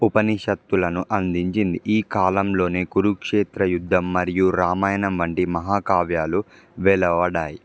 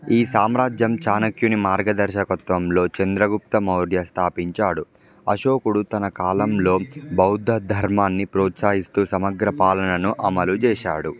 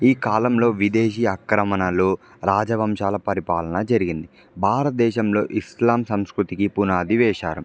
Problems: background sounds at intervals